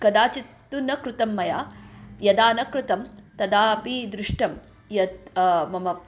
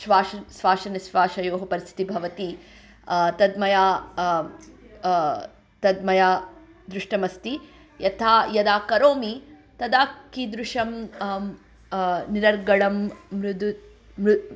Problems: background sounds at intervals